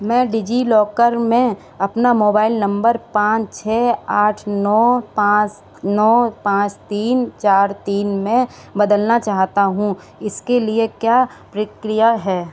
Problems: constant background noise